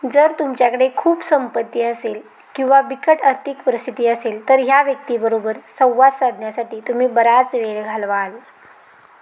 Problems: none marked